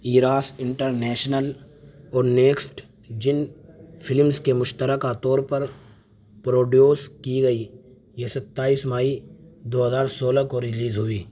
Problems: none marked